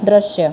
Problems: constant background noise